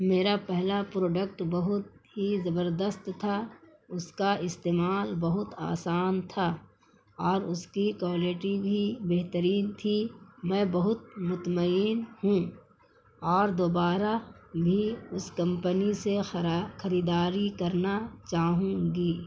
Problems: constant background noise